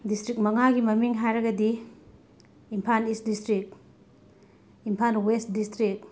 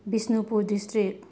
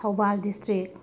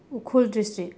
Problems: none marked